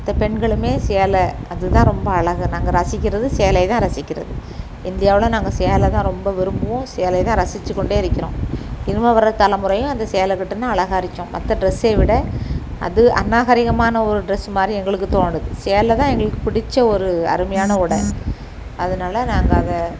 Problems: constant background noise